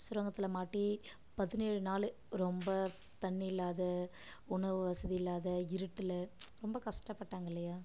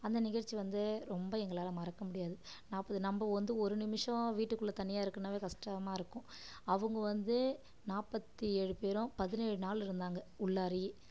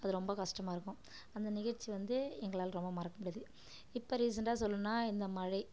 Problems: none marked